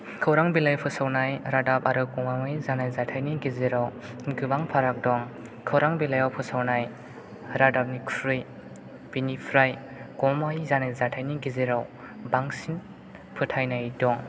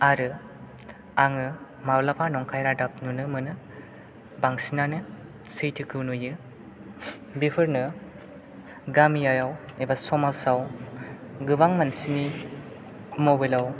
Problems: background sounds at intervals